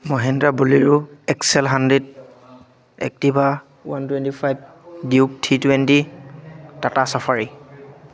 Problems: constant background noise, background conversations at intervals